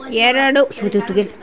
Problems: constant background noise